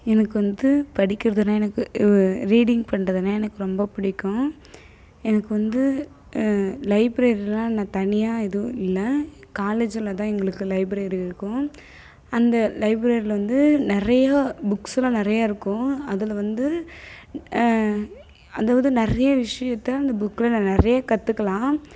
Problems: none marked